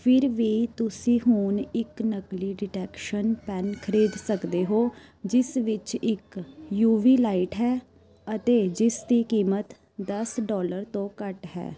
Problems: continuous background conversations